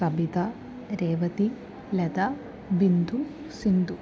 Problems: constant background noise